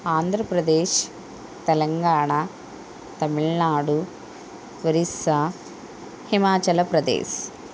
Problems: constant background noise